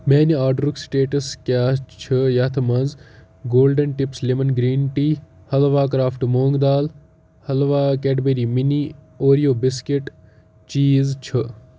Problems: background sounds at intervals